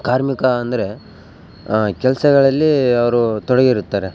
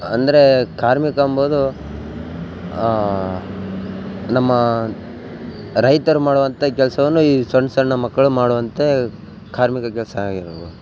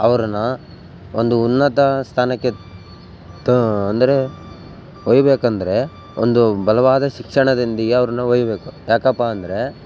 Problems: background sounds at intervals